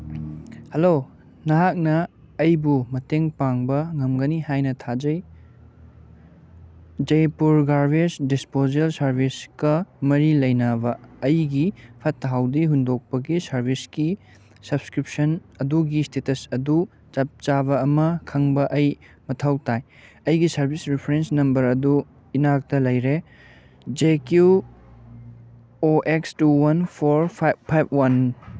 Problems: background sounds at intervals